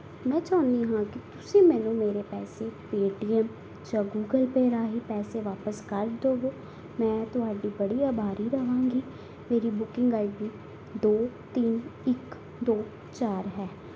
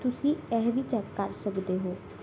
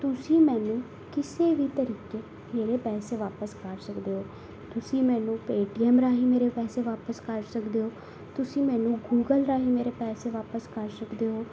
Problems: background sounds at intervals